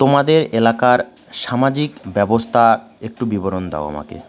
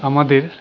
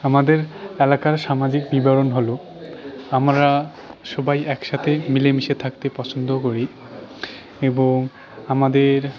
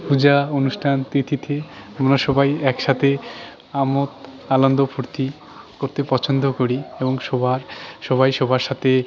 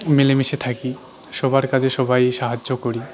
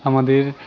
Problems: continuous background conversations